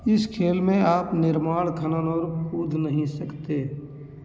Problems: none marked